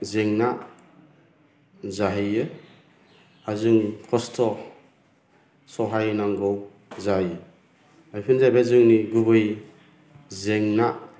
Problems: none marked